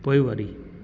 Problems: constant background noise, echo